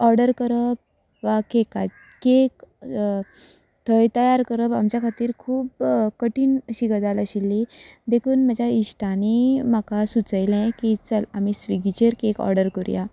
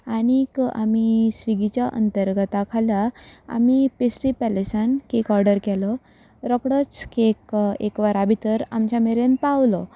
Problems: none marked